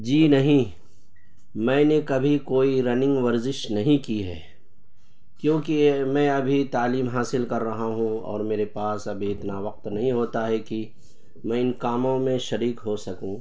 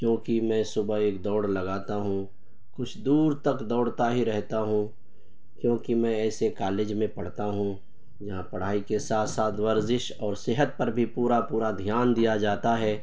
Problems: constant background noise